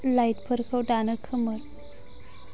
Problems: constant background noise